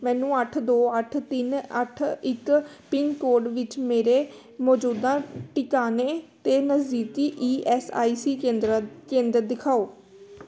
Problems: background conversations at intervals